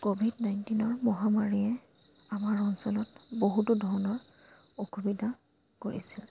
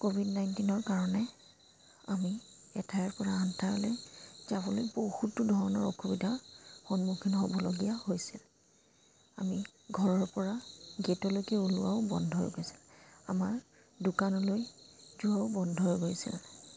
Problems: constant background noise